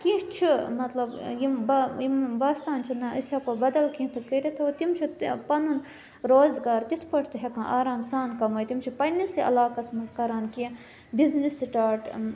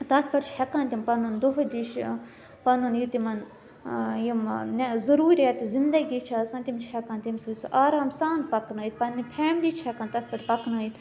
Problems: background sounds at intervals